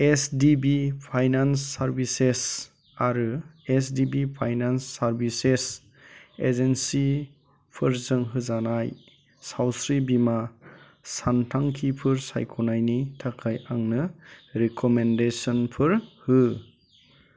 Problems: none marked